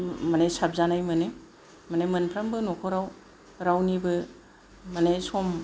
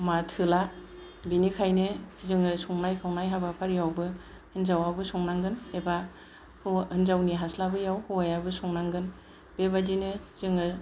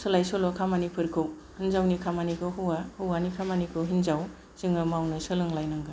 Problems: none marked